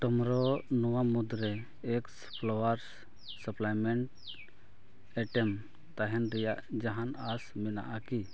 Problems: background sounds at intervals